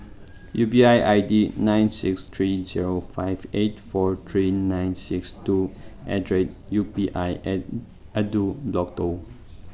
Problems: background sounds at intervals